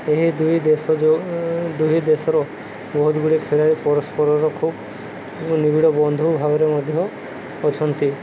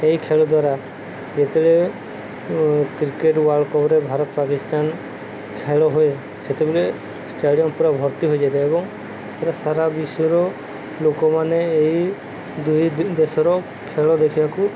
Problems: constant background noise